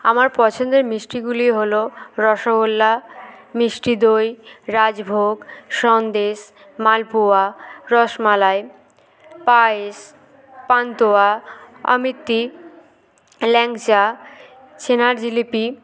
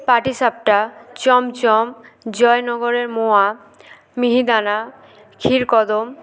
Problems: none marked